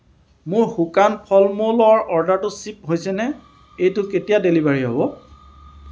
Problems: none marked